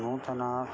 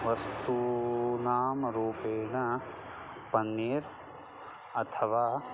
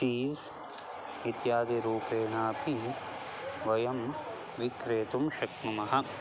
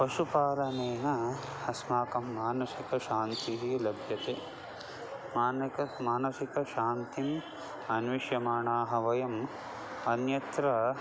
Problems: none marked